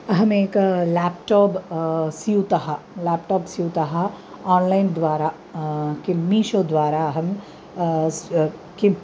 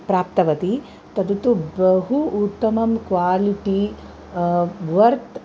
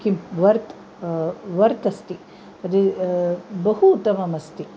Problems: constant background noise